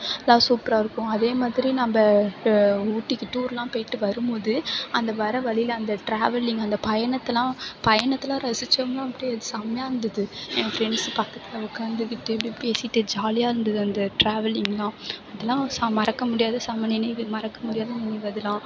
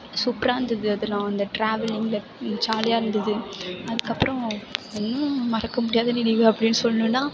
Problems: background sounds at intervals